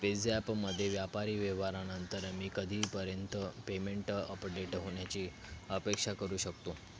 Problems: constant background noise